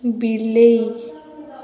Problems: continuous background conversations